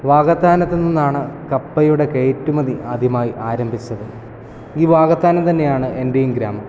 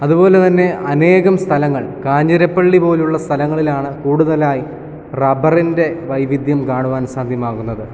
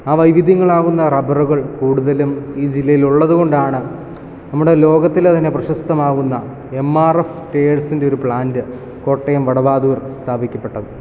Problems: background conversations at intervals